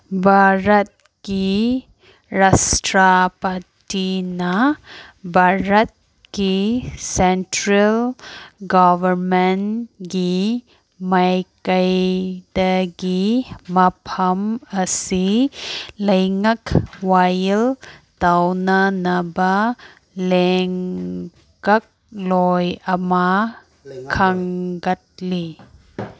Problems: background conversations at intervals